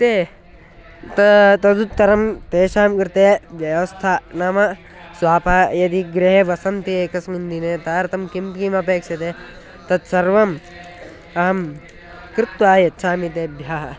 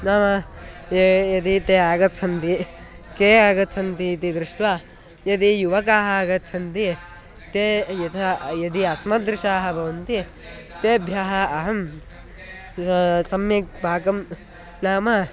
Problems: constant background noise